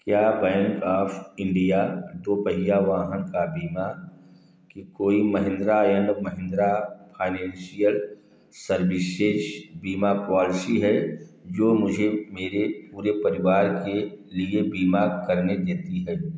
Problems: echo